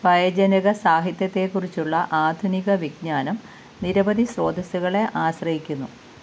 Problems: constant background noise